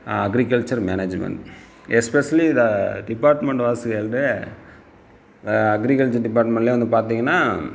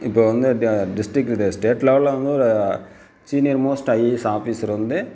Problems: constant background noise